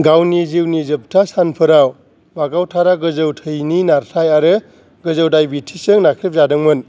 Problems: none marked